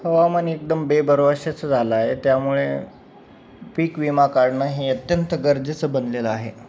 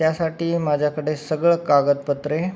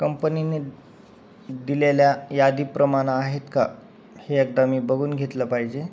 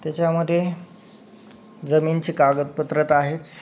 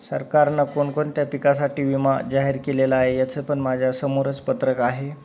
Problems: none marked